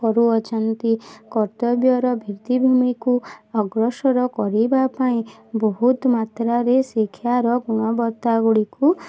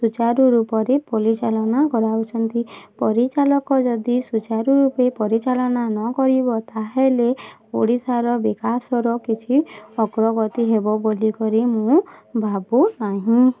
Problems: constant background noise, continuous background conversations